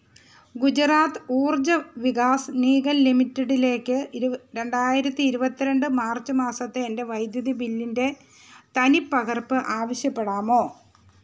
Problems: background sounds at intervals